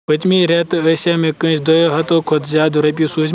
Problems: constant background noise